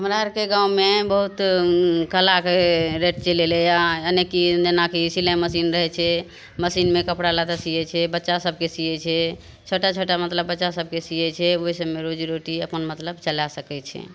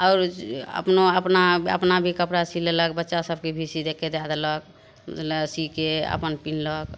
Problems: none marked